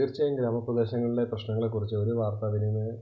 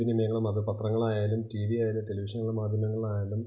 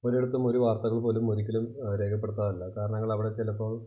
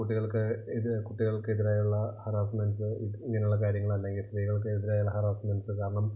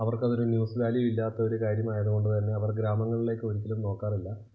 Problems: constant background noise, low volume